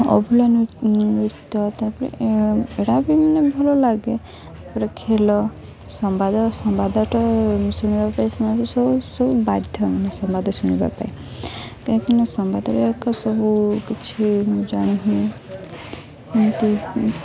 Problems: constant background noise, continuous background conversations